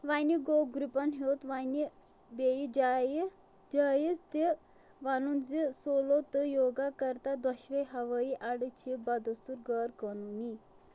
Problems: constant background noise